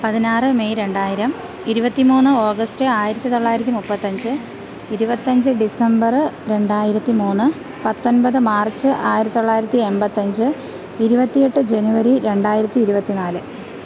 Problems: constant background noise